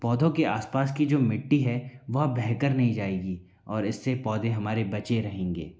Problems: background conversations at intervals